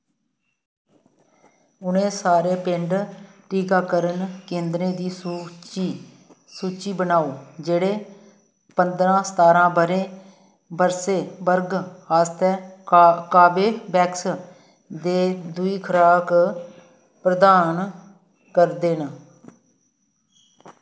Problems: constant background noise